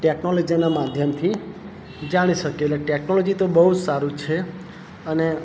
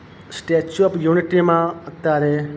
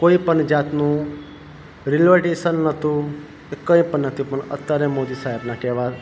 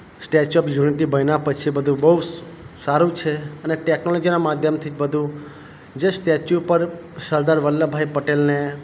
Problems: none marked